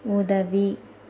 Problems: none marked